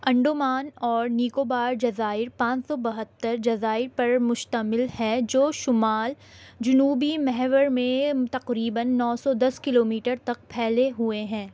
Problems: constant background noise